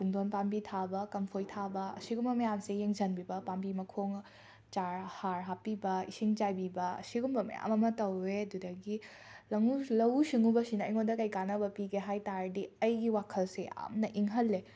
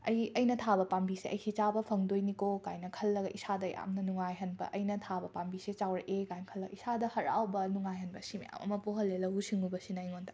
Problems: background sounds at intervals